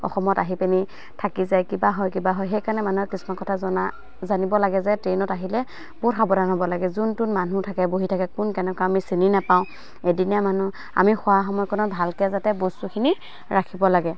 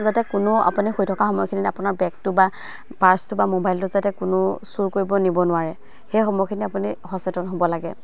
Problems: constant background noise, background conversations at intervals